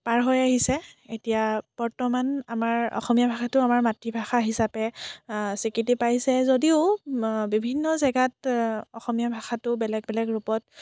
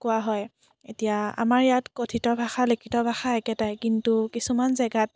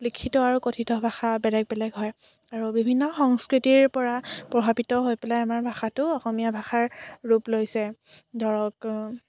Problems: none marked